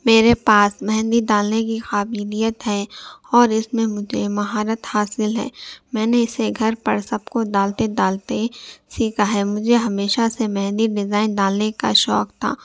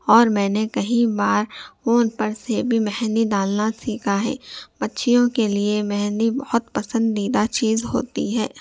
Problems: none marked